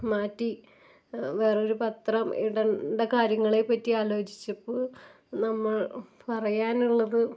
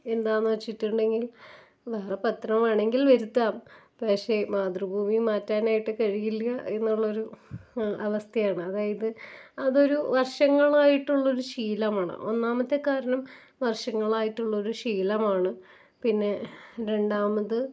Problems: none marked